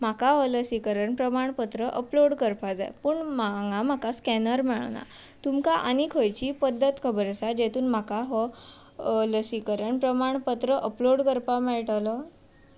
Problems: constant background noise